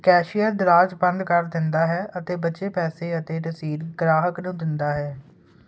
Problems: none marked